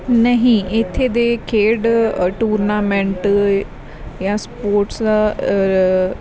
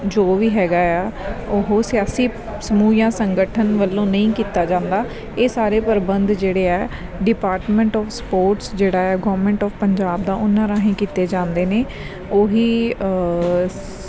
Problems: background sounds at intervals